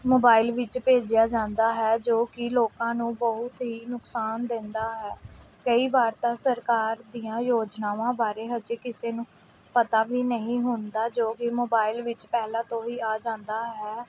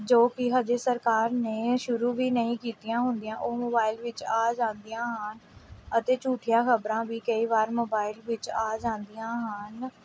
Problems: background sounds at intervals